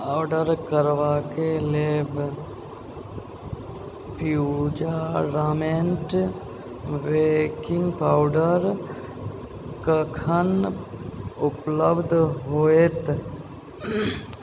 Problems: low volume